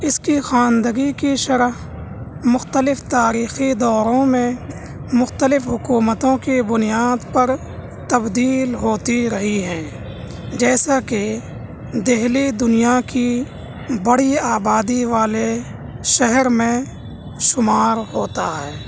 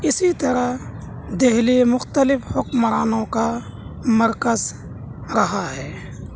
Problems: constant background noise, low volume